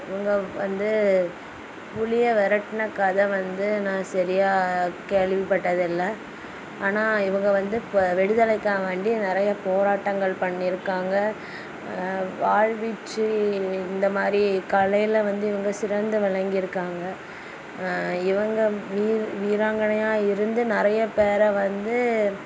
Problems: constant background noise